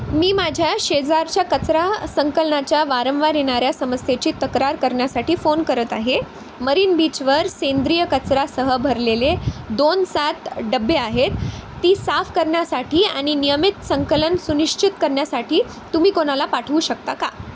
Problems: constant background noise